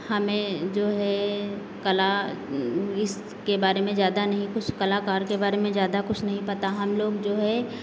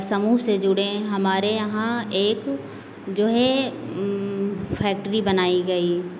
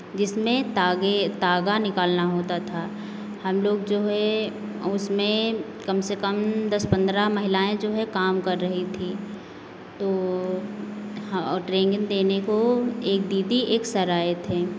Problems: constant background noise